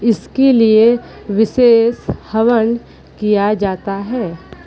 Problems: continuous background conversations, echo